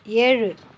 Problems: none marked